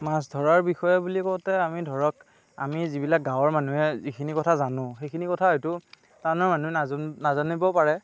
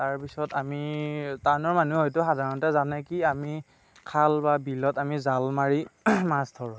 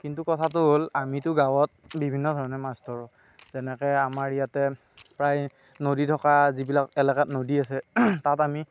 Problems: constant background noise, background conversations at intervals